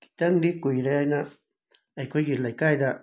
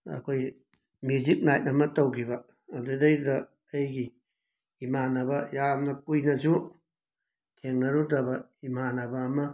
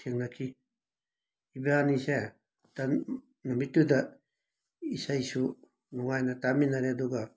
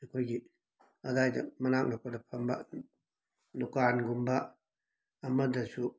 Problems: background sounds at intervals